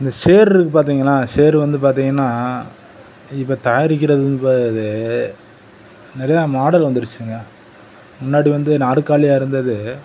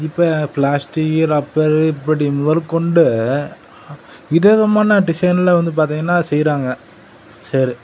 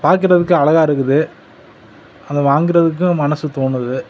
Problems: constant background noise